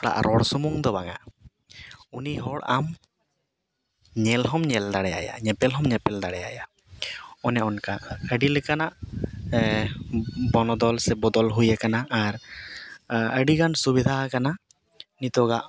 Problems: background conversations at intervals